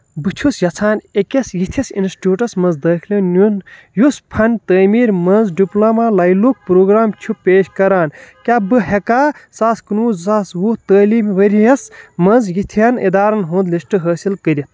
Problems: none marked